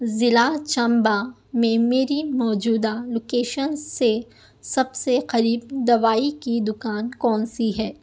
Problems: none marked